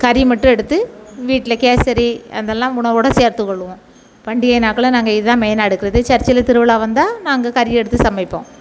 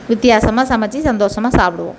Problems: constant background noise